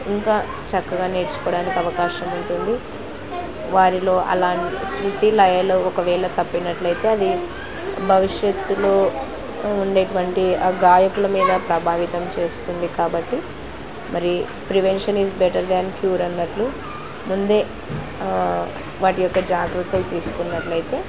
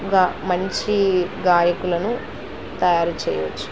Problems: constant background noise